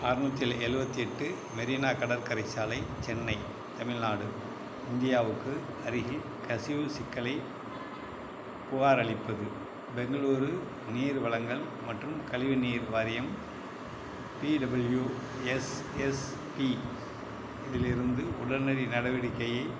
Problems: constant background noise